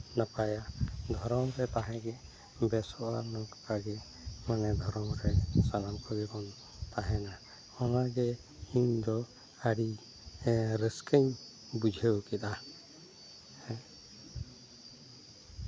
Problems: background sounds at intervals